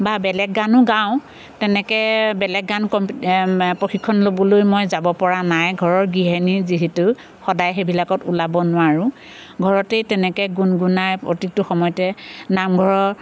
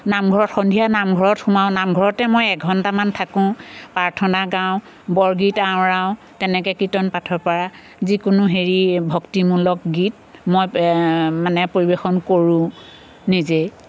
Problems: constant background noise